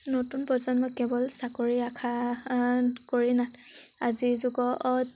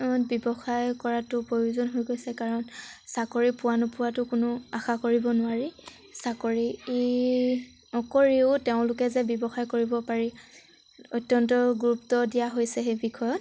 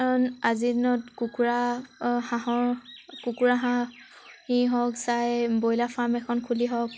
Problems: background sounds at intervals